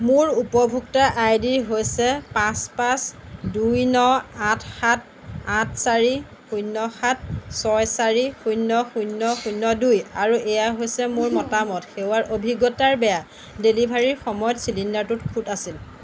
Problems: background sounds at intervals